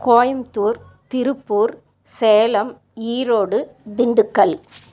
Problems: constant background noise